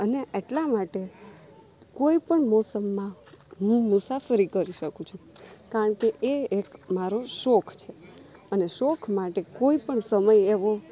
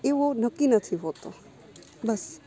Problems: none marked